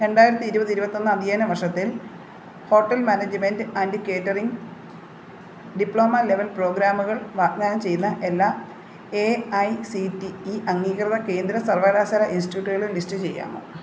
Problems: constant background noise